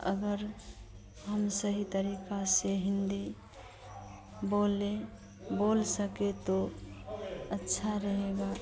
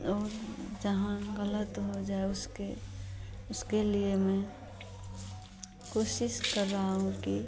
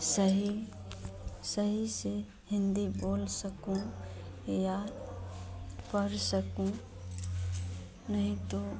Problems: constant background noise